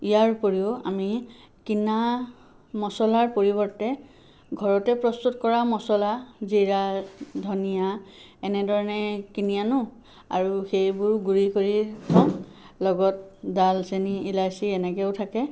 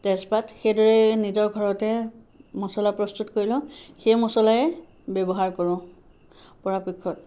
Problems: background sounds at intervals